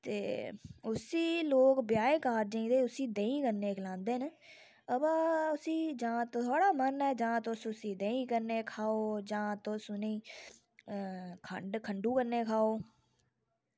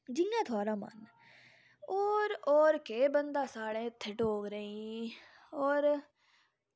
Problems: low volume